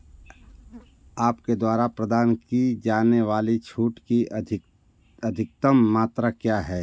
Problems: none marked